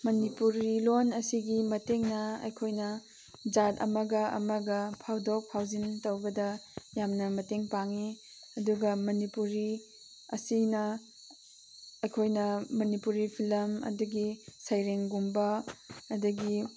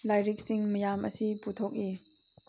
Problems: constant background noise